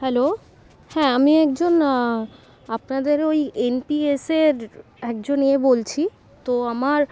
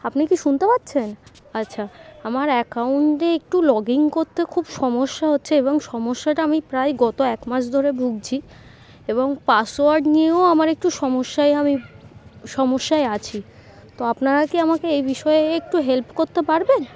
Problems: none marked